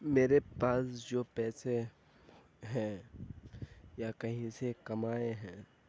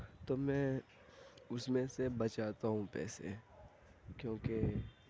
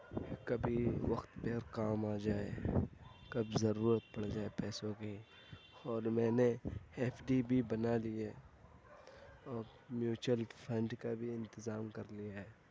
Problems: constant background noise, low volume